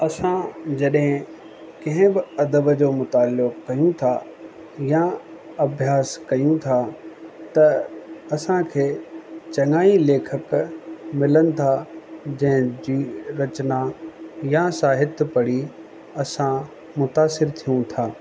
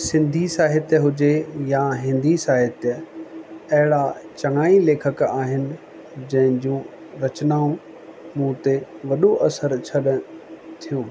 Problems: constant background noise